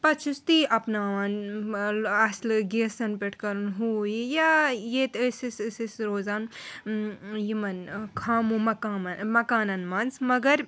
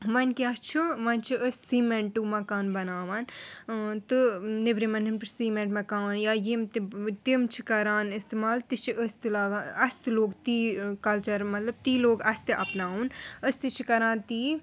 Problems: none marked